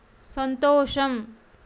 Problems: constant background noise